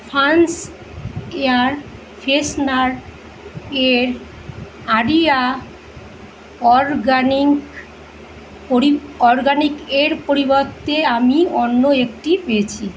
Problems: constant background noise